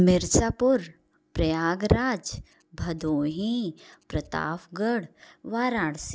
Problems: none marked